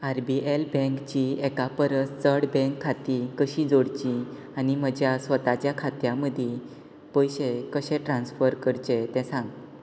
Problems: constant background noise